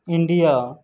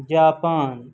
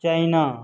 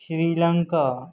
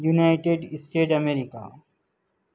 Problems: constant background noise